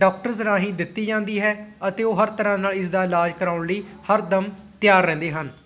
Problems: background sounds at intervals